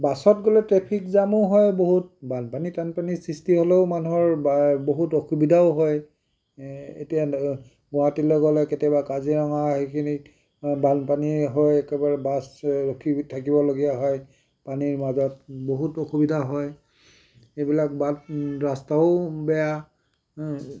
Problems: none marked